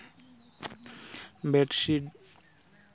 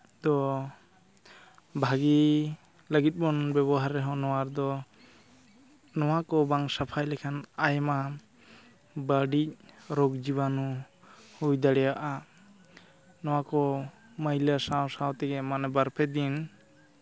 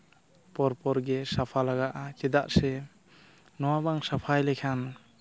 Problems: none marked